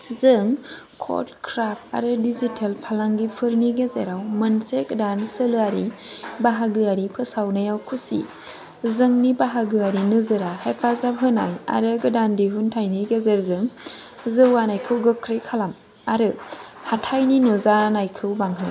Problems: none marked